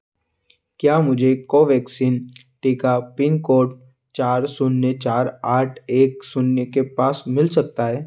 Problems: none marked